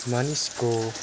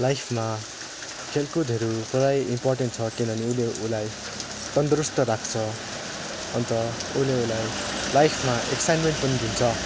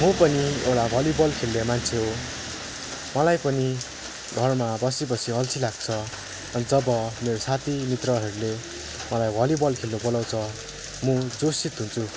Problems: background sounds at intervals